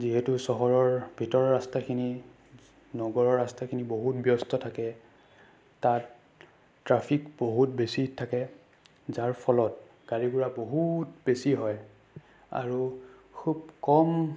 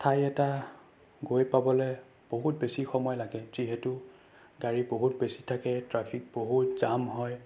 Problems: none marked